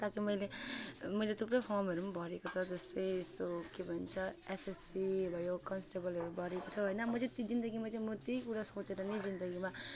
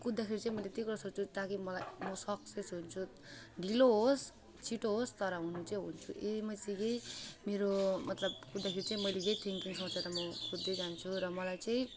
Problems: background sounds at intervals